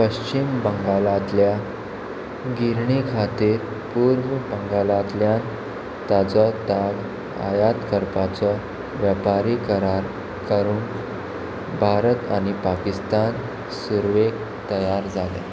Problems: constant background noise